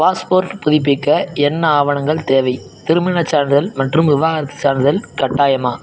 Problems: background sounds at intervals